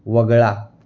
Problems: none marked